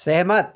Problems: constant background noise, continuous background conversations